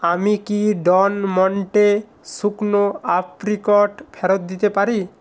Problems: constant background noise